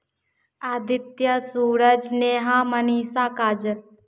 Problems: none marked